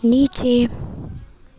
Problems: constant background noise